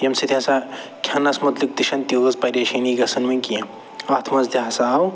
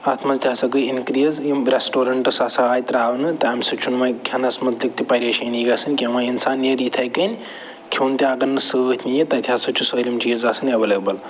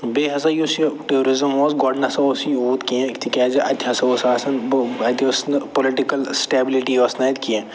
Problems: none marked